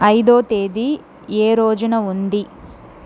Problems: constant background noise